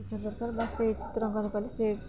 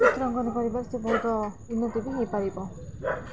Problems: constant background noise, continuous background conversations